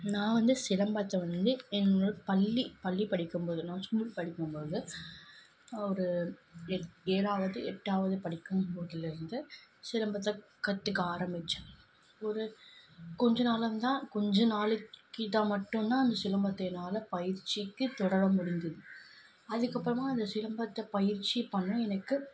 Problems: constant background noise